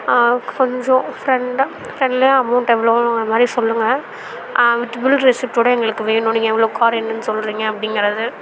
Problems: constant background noise, continuous background conversations